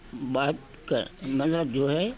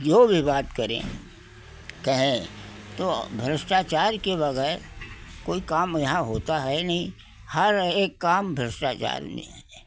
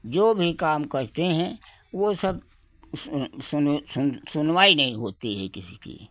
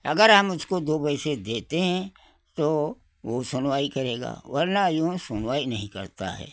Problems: none marked